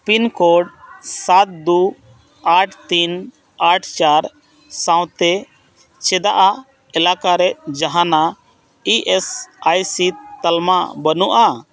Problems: constant background noise